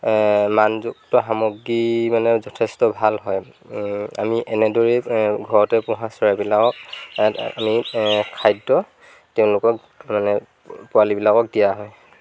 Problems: background sounds at intervals